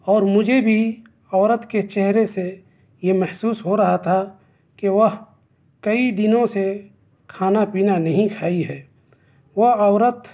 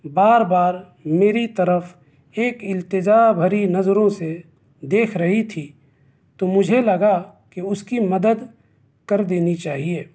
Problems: background sounds at intervals